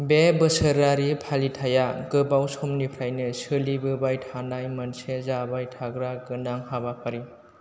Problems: none marked